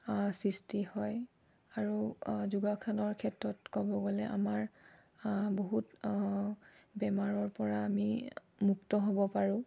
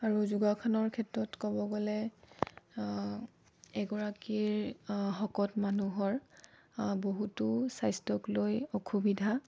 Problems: low volume